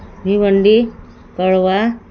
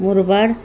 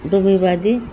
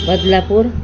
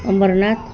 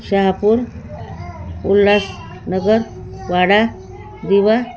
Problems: constant background noise